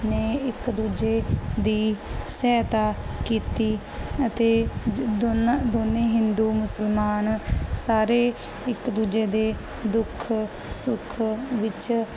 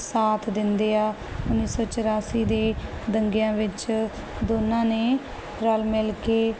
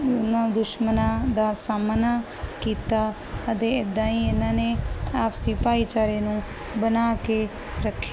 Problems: constant background noise